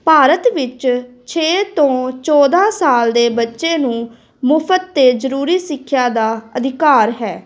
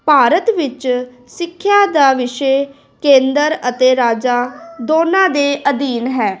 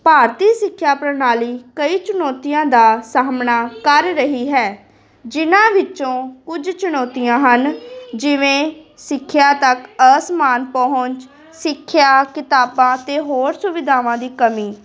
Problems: constant background noise, continuous background conversations